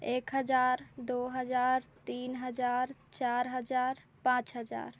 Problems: constant background noise